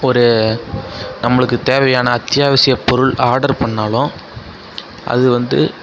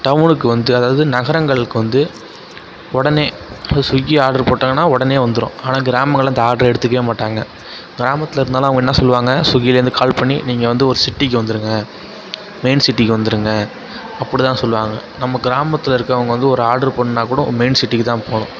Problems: constant background noise, continuous background conversations